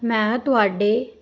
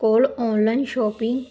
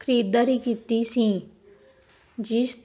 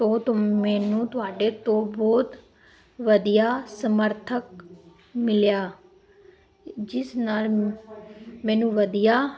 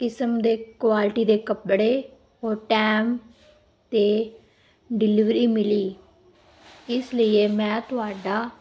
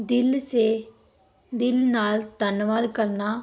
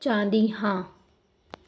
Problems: continuous background conversations